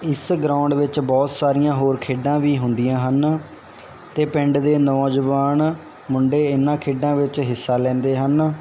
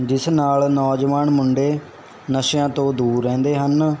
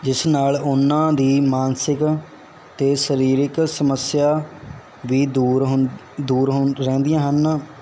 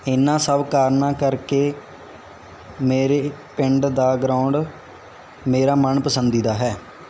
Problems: constant background noise